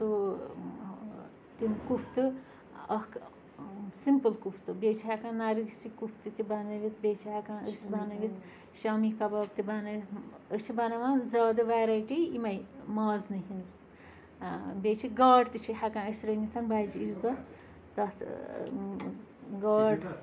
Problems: constant background noise, continuous background conversations